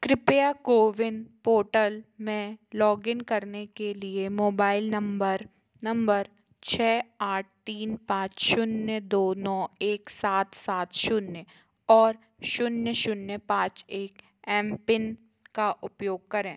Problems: constant background noise